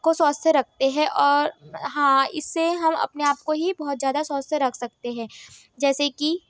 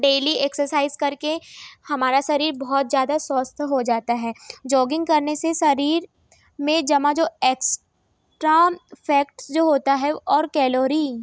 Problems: none marked